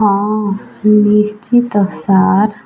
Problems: constant background noise